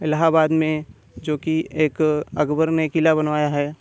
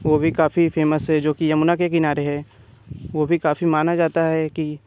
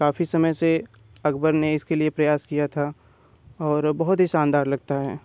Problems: constant background noise